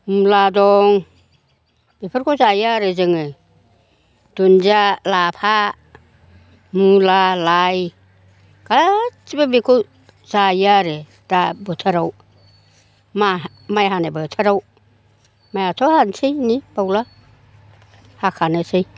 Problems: constant background noise